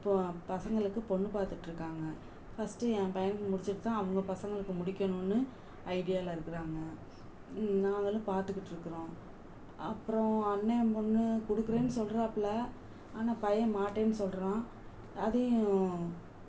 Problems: constant background noise, low volume